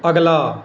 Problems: background sounds at intervals